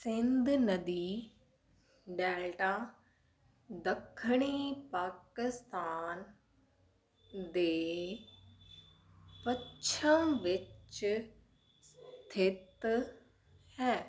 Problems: none marked